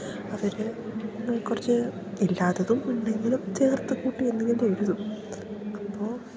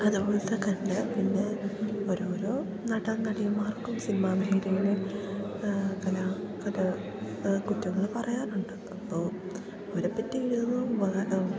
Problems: background sounds at intervals